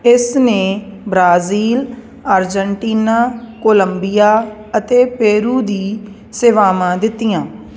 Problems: constant background noise